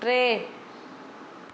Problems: none marked